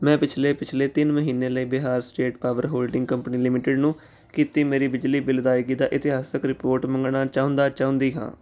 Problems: none marked